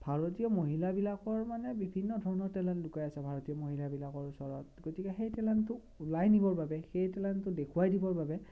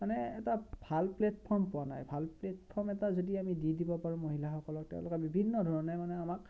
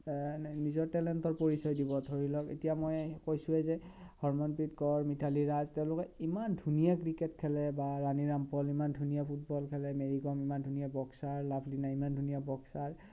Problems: none marked